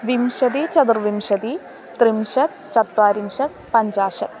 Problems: constant background noise